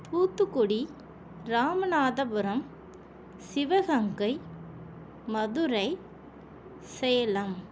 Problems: none marked